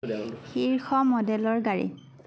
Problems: background conversations at intervals